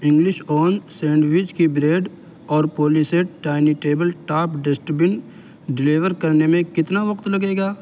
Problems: constant background noise